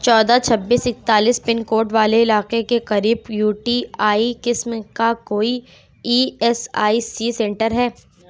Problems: none marked